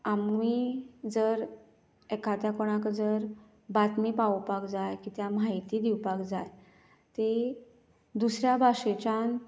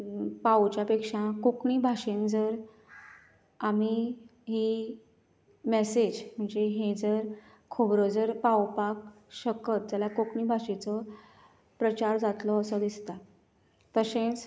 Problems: none marked